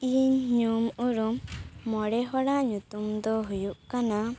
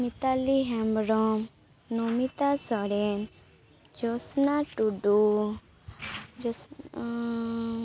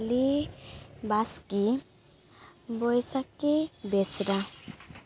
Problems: background sounds at intervals